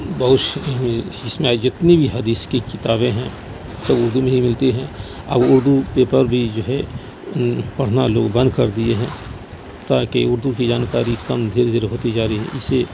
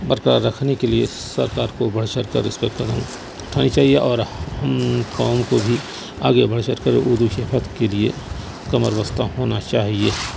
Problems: constant background noise